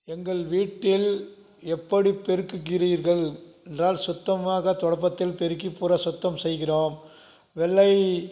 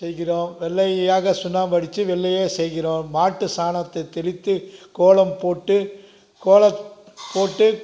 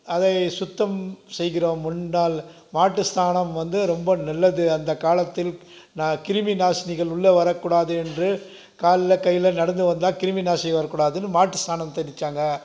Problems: none marked